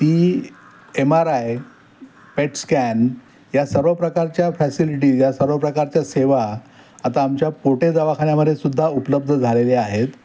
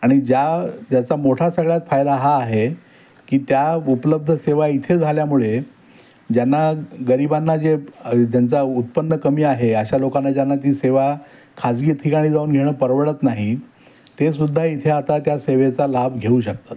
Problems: background sounds at intervals